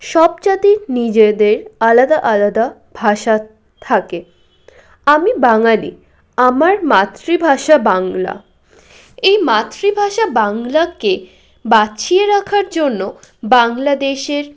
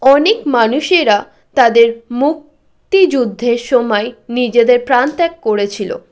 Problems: continuous background conversations